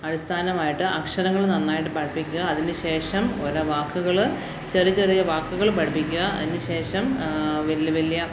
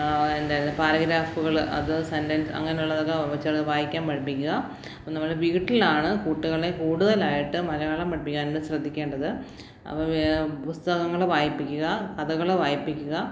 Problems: none marked